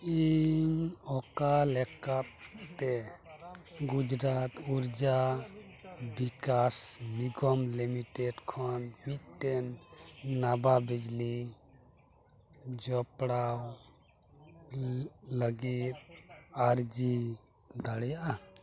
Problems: constant background noise, background conversations at intervals